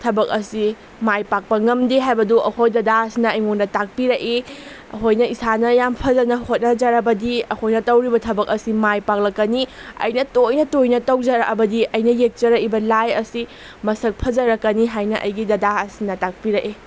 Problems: constant background noise